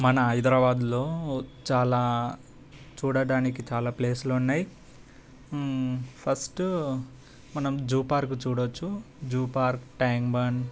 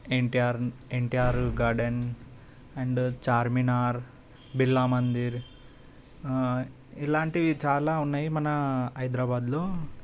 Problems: constant background noise